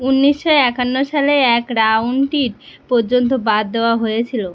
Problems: constant background noise